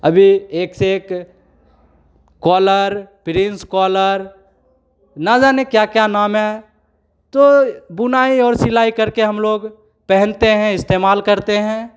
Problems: none marked